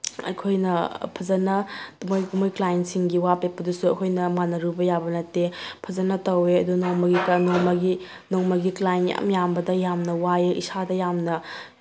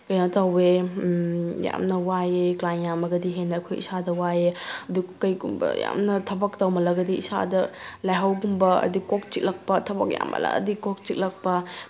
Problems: none marked